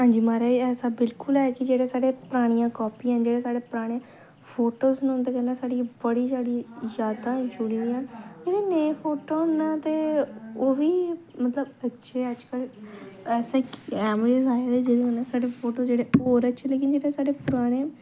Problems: low volume